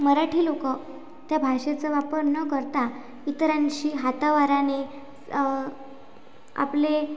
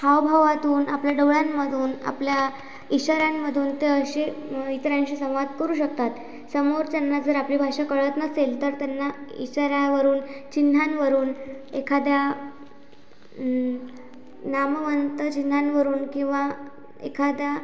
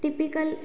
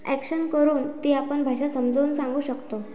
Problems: background sounds at intervals